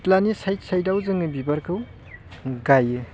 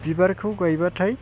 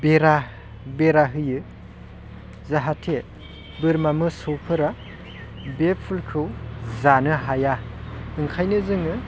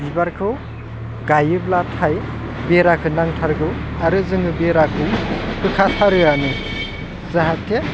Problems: constant background noise